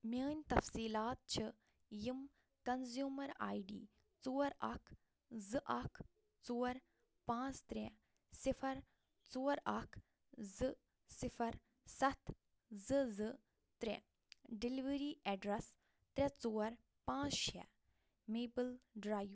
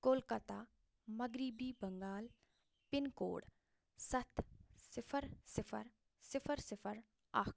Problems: low volume